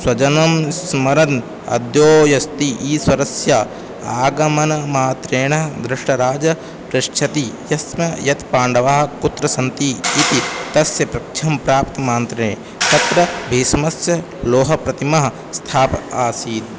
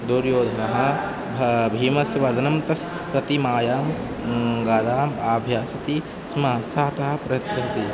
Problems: background sounds at intervals